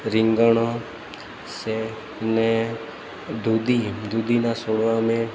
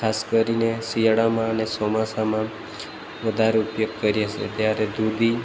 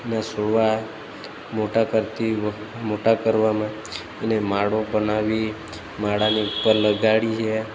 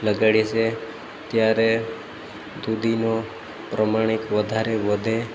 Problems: constant background noise